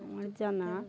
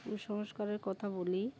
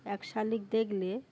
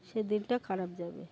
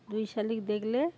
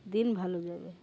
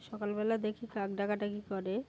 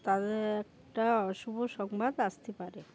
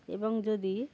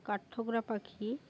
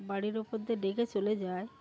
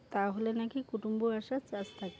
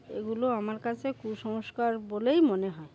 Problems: background sounds at intervals